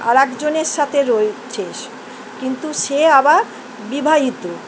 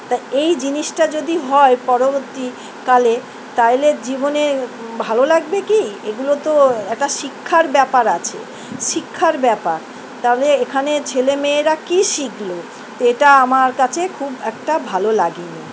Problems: constant background noise